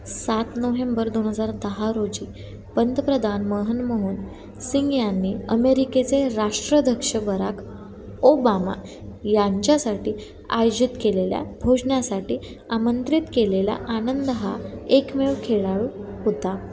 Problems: none marked